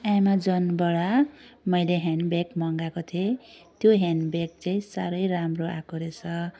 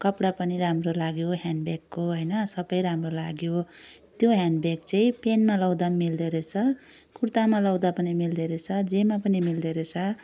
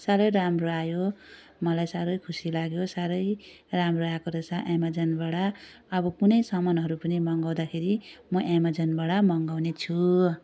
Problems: none marked